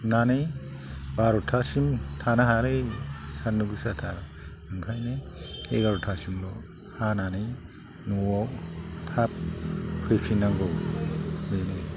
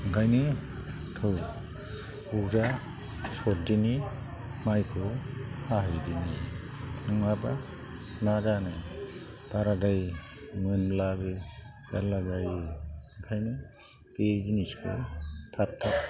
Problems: constant background noise